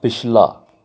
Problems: none marked